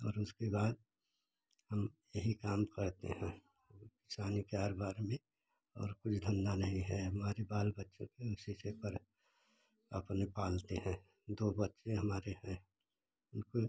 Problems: none marked